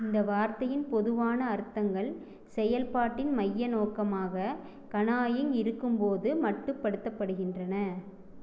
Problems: none marked